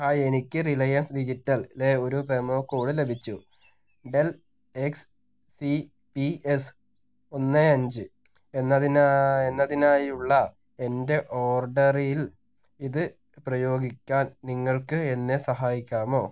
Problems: none marked